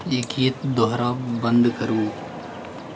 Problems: background sounds at intervals